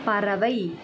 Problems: background sounds at intervals, background conversations at intervals